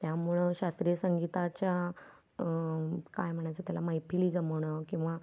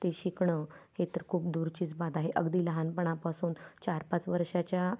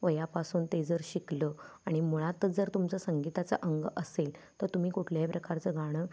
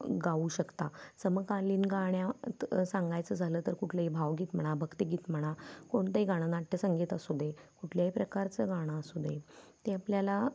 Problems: background sounds at intervals